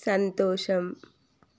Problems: none marked